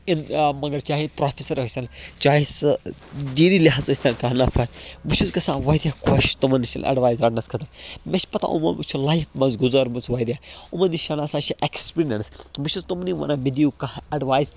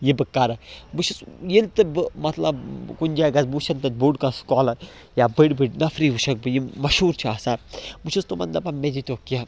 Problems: background sounds at intervals